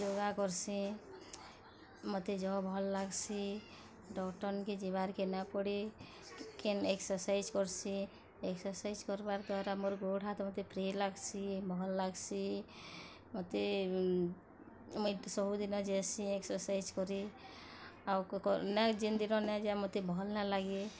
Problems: constant background noise